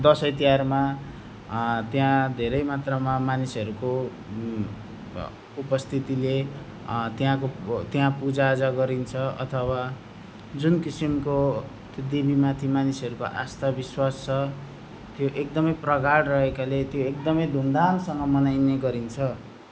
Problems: none marked